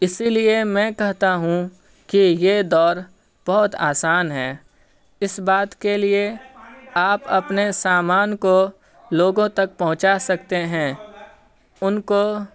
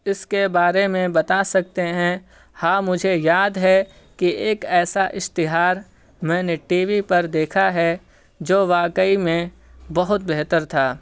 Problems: none marked